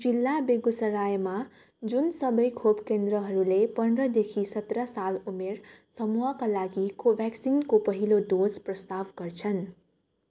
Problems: none marked